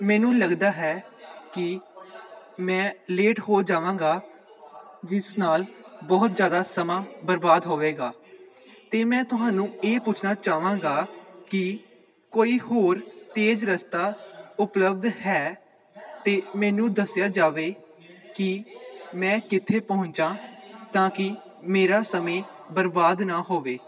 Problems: continuous background conversations